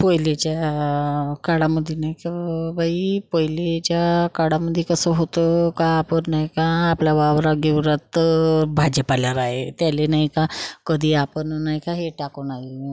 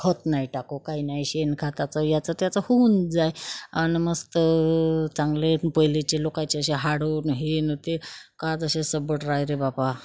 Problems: none marked